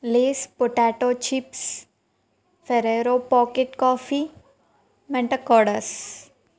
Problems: constant background noise